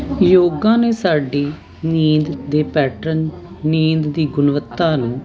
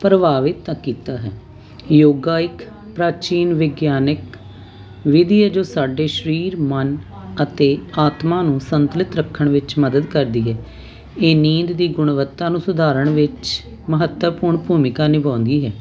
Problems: none marked